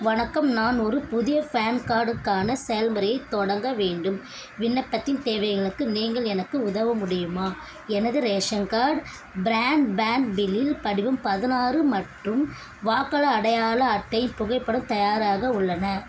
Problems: constant background noise, continuous background conversations